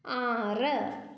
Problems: echo